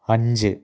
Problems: low volume